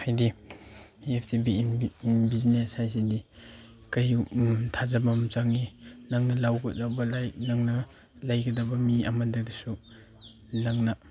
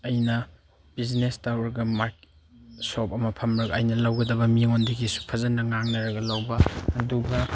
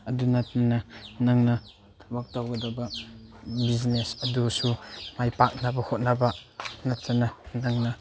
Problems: none marked